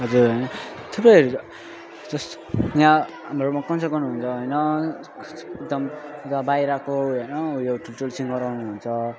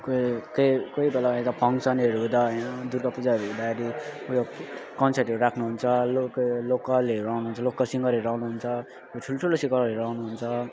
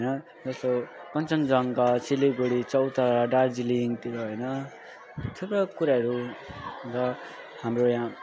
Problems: constant background noise